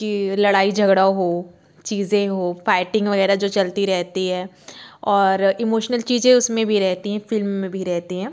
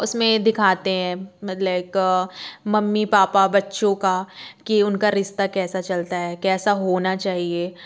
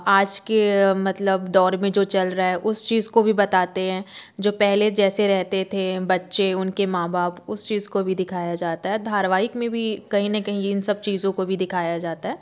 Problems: background sounds at intervals